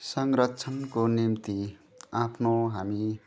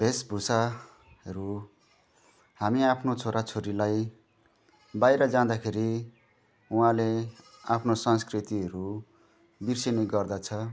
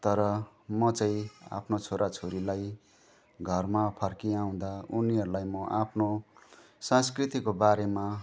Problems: none marked